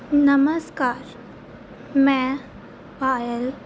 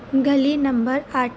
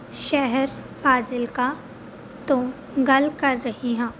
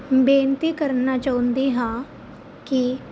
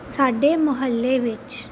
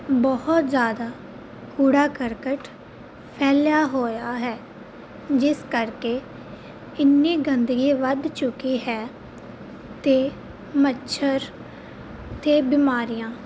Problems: constant background noise